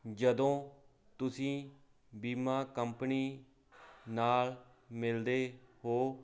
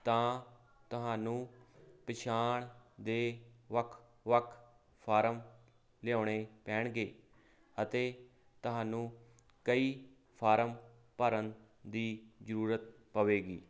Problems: constant background noise